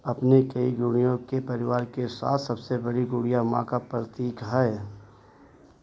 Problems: constant background noise